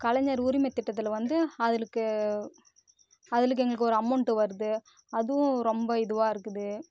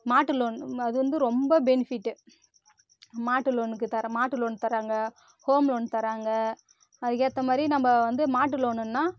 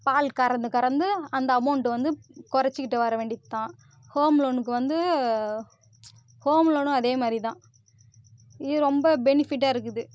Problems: constant background noise